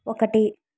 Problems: none marked